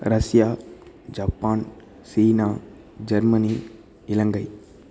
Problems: constant background noise